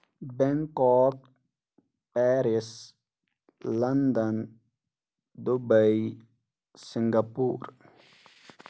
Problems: none marked